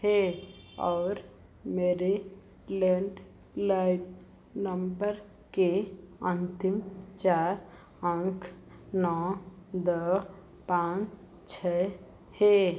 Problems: none marked